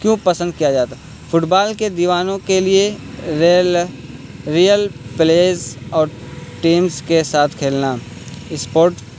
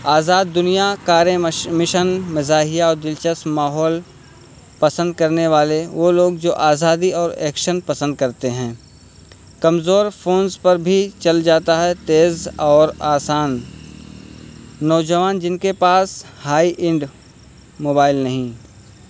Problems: constant background noise